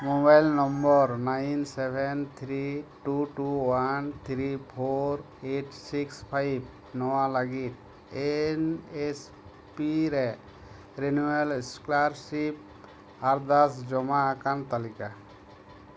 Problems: constant background noise